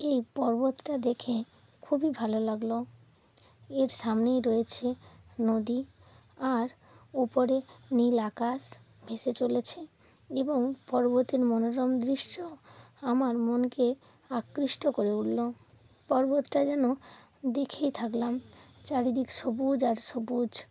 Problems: background sounds at intervals